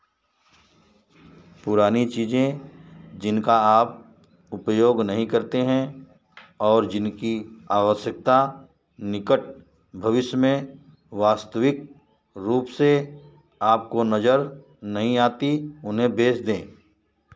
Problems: none marked